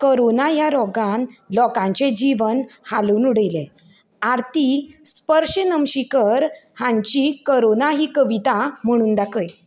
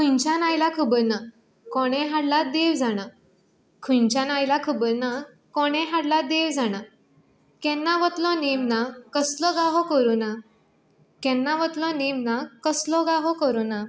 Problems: none marked